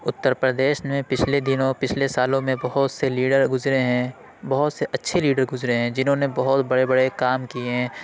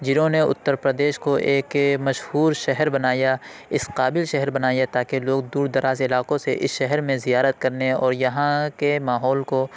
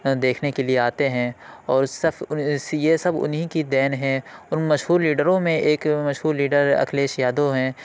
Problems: none marked